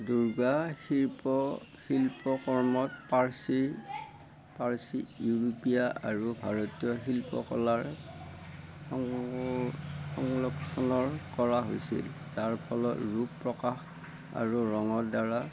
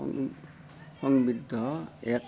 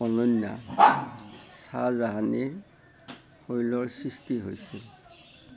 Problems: constant background noise